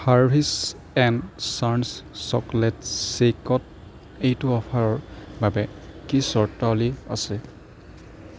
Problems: none marked